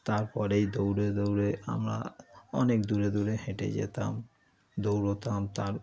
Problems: constant background noise, background conversations at intervals